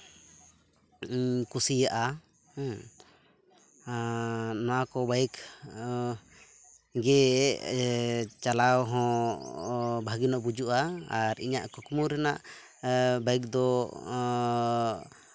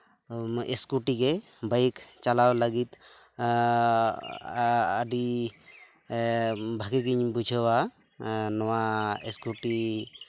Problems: none marked